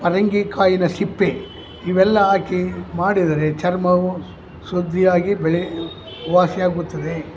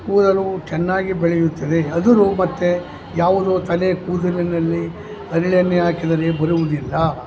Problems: background sounds at intervals